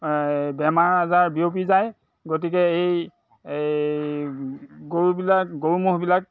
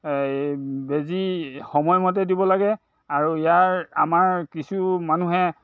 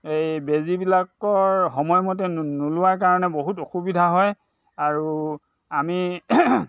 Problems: constant background noise